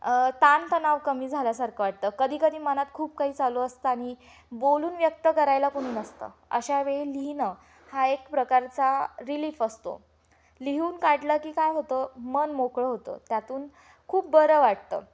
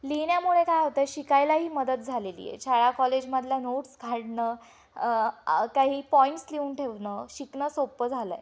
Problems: background sounds at intervals